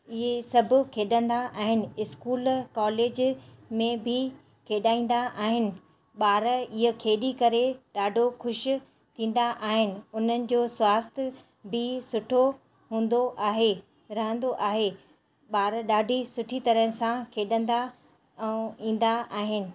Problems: constant background noise